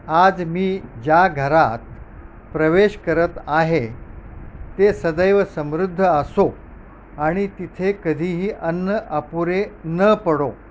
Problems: constant background noise